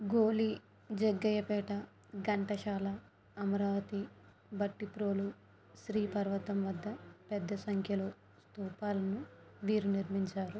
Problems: low volume